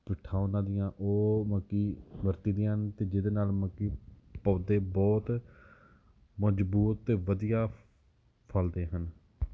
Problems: background sounds at intervals